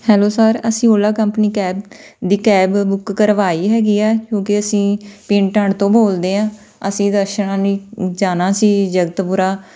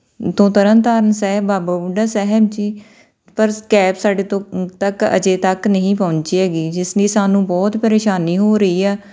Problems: none marked